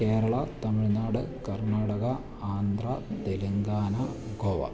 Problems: constant background noise, low volume